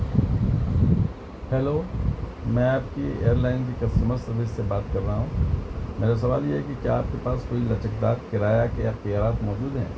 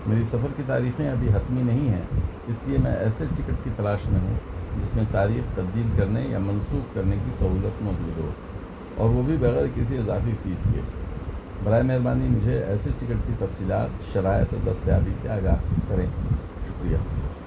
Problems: constant background noise